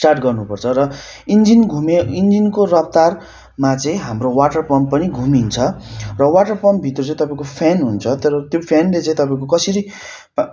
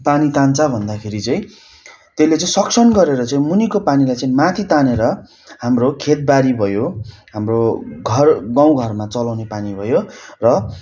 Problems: constant background noise